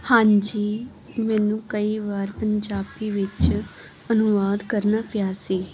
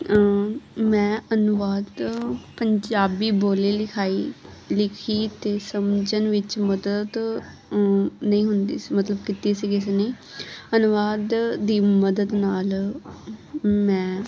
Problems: background sounds at intervals